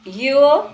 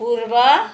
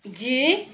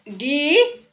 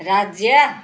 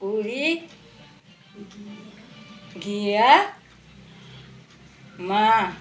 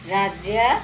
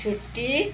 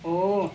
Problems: background sounds at intervals, continuous background conversations